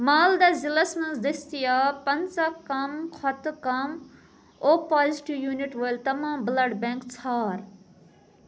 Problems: background sounds at intervals